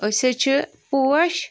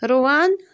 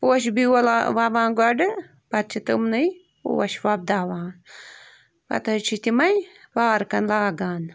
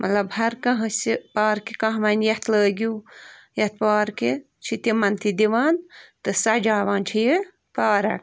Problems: constant background noise